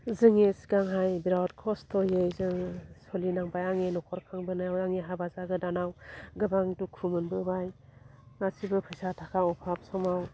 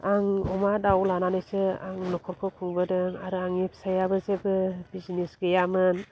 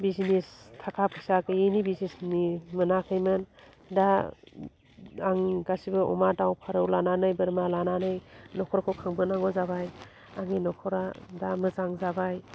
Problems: low volume